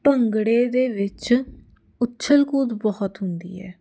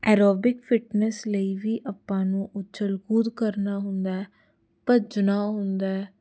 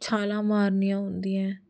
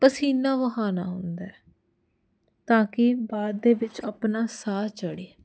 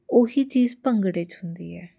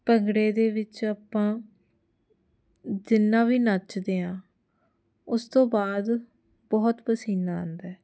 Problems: none marked